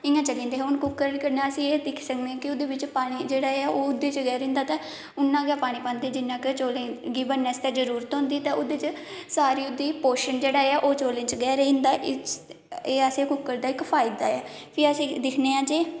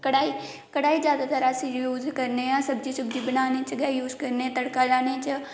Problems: constant background noise, echo